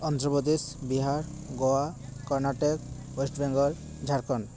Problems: background conversations at intervals